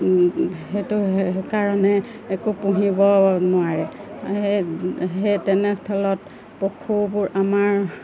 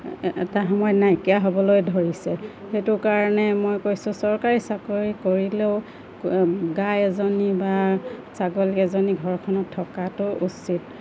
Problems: constant background noise, low volume